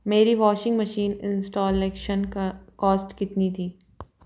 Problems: background sounds at intervals